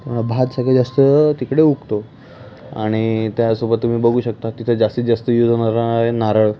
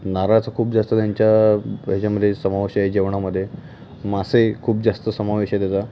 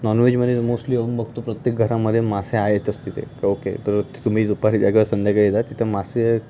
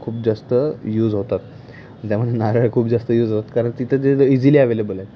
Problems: none marked